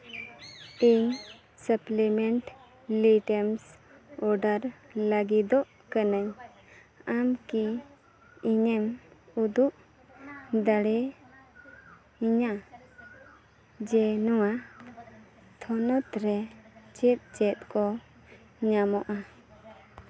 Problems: continuous background conversations